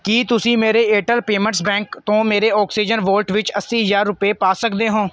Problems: background sounds at intervals